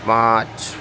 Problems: none marked